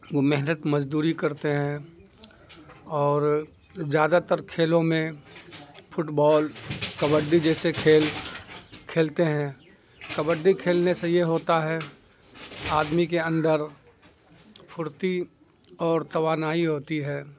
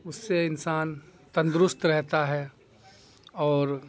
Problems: constant background noise